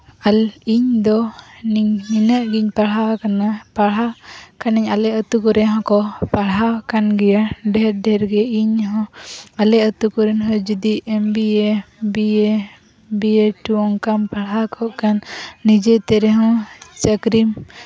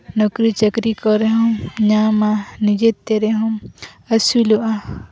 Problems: constant background noise, background conversations at intervals